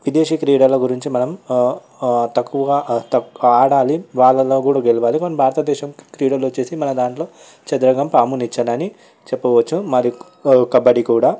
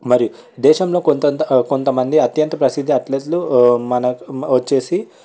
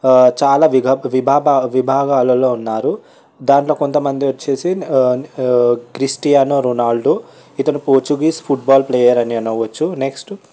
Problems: background sounds at intervals, background conversations at intervals